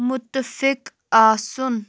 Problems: none marked